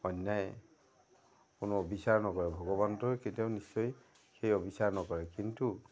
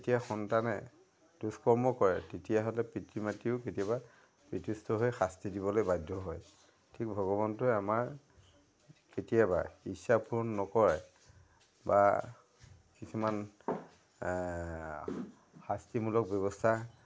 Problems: background sounds at intervals, background conversations at intervals